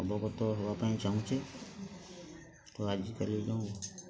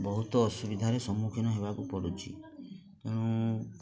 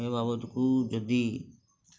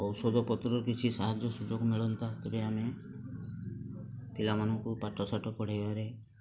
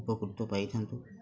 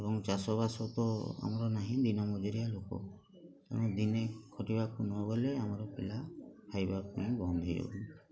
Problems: constant background noise, continuous background conversations